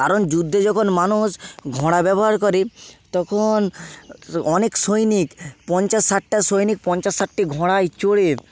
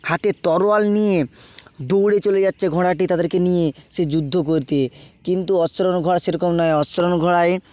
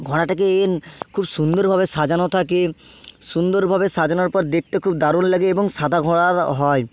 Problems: background sounds at intervals